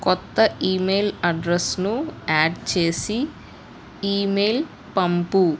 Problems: constant background noise